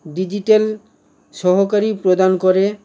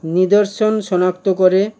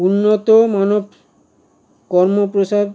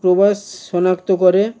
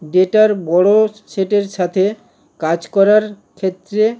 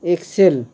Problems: constant background noise